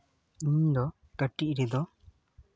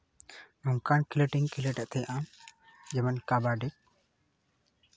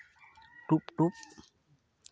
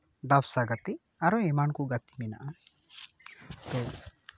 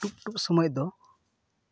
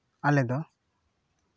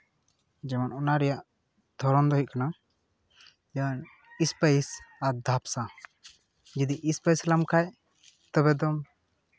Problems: background sounds at intervals